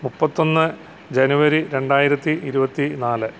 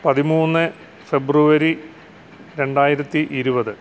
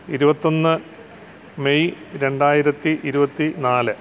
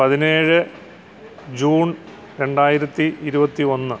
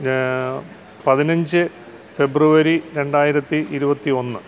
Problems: background sounds at intervals